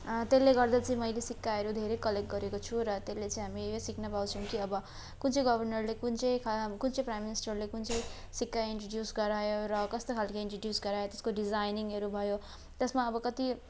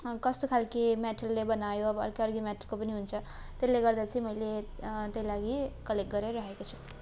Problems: constant background noise